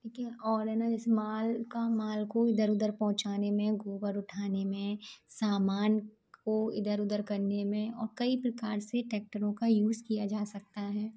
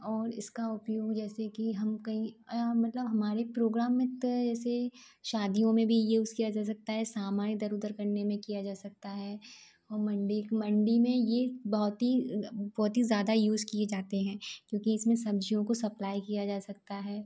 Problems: low volume